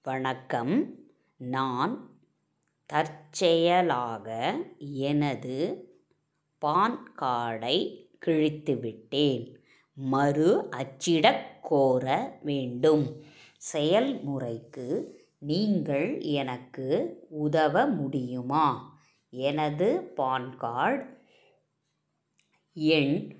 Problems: none marked